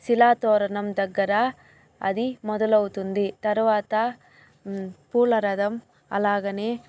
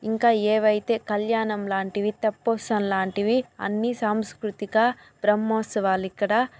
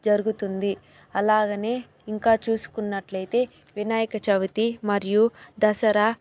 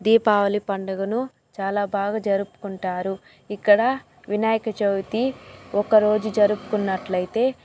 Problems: background sounds at intervals, background conversations at intervals